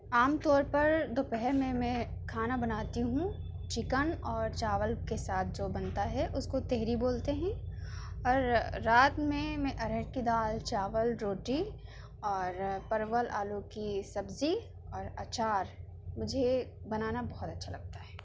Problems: none marked